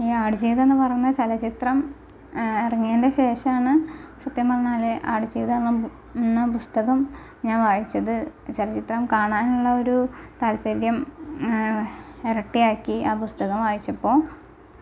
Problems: constant background noise, low volume